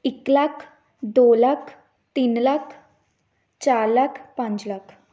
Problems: none marked